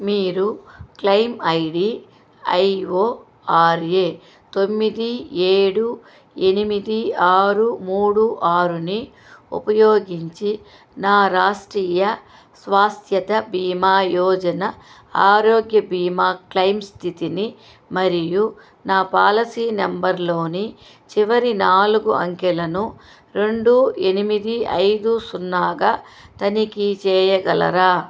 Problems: constant background noise